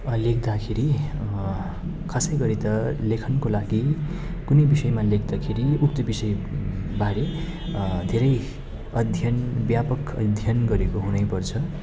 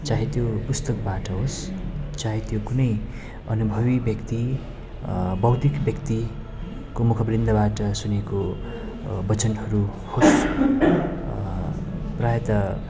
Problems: constant background noise